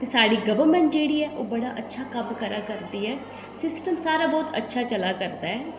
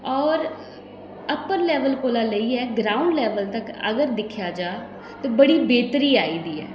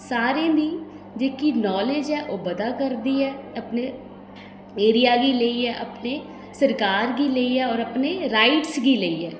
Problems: background sounds at intervals, echo